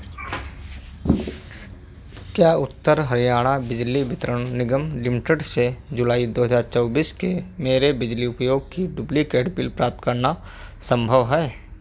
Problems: none marked